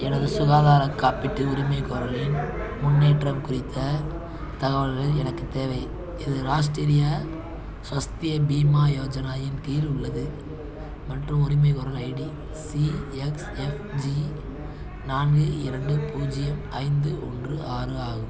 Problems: continuous background conversations